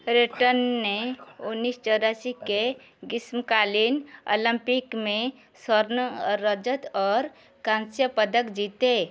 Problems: background sounds at intervals